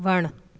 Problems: constant background noise